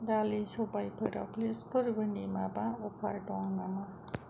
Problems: low volume